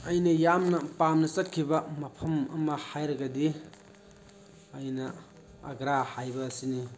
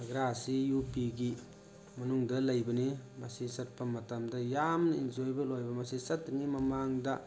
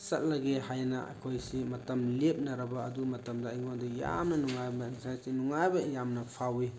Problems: constant background noise